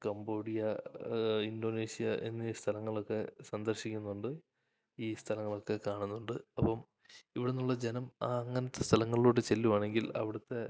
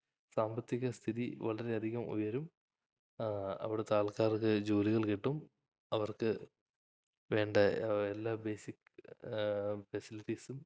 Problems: low volume